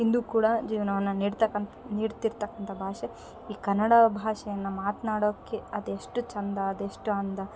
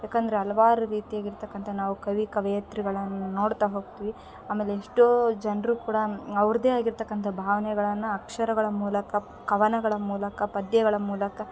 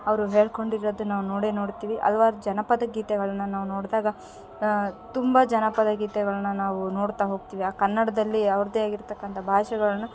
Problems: background sounds at intervals